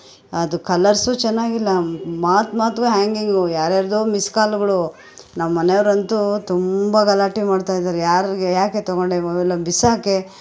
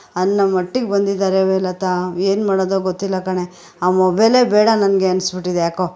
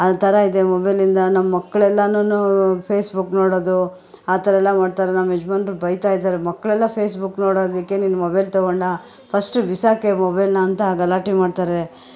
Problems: background conversations at intervals